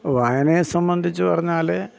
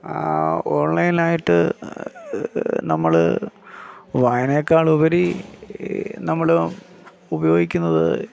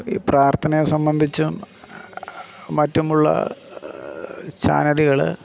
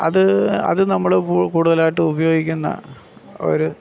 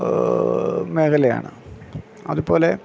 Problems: none marked